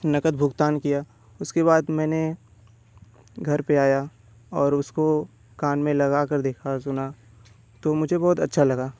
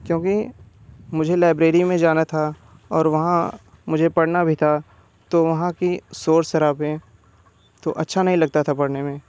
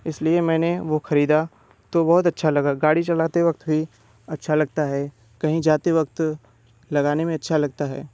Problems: background sounds at intervals